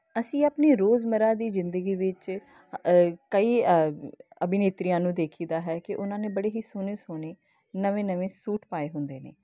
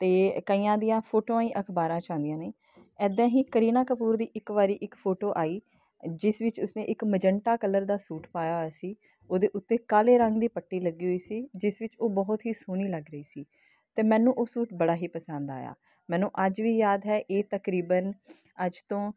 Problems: constant background noise